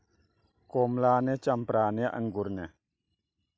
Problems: none marked